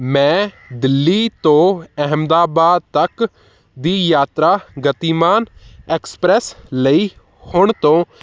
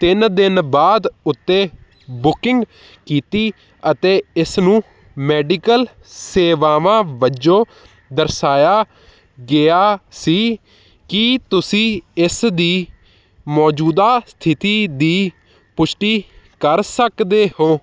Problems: none marked